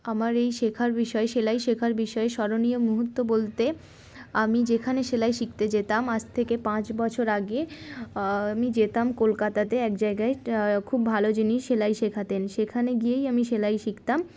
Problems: constant background noise